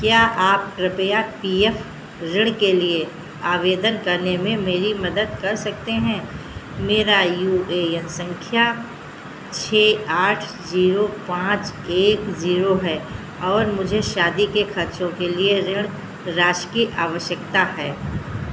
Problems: constant background noise